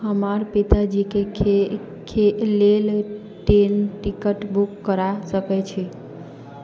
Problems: background sounds at intervals